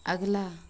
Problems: constant background noise